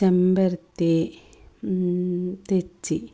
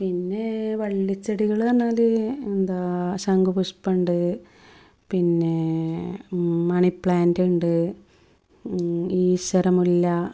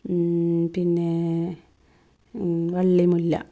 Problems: none marked